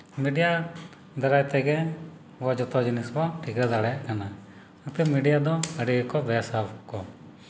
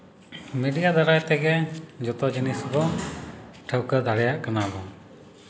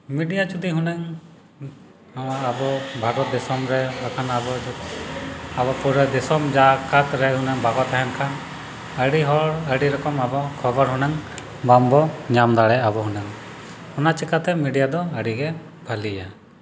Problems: background sounds at intervals